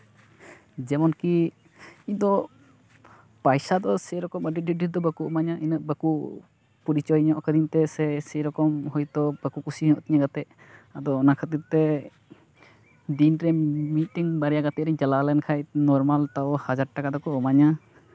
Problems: none marked